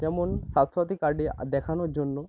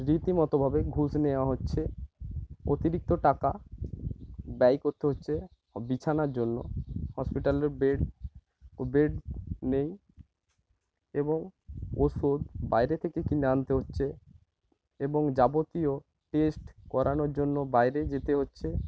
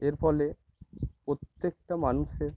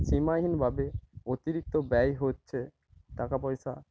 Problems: background sounds at intervals, low volume